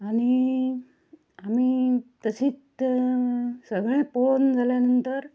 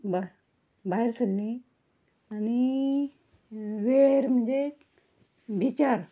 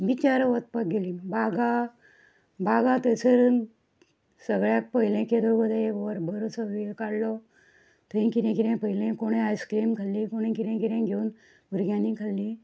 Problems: none marked